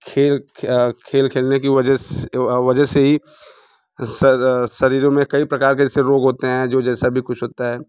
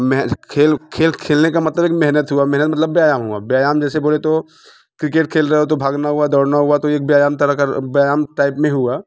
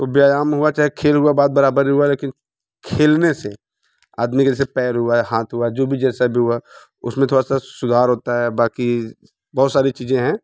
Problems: none marked